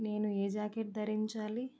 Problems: none marked